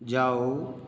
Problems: constant background noise